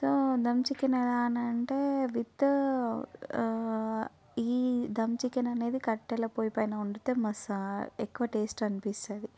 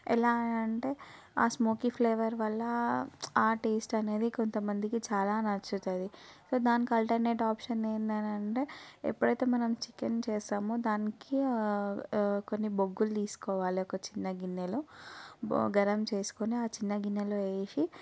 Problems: background sounds at intervals